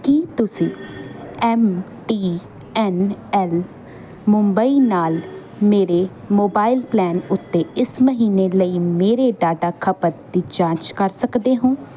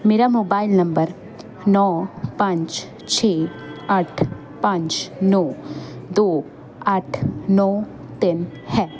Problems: none marked